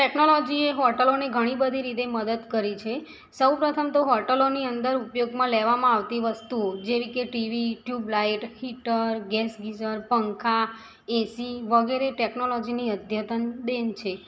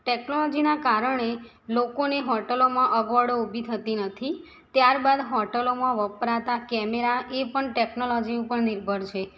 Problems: background sounds at intervals